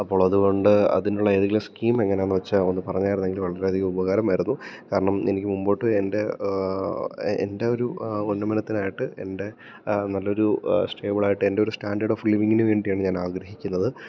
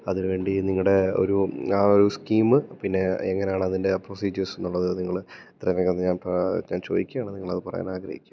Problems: low volume